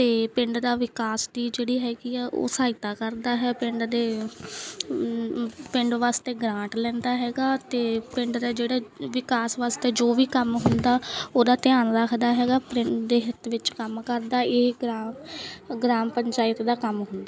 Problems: background sounds at intervals